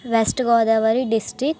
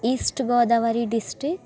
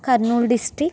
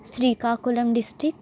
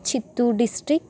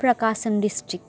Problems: constant background noise